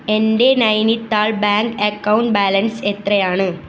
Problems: none marked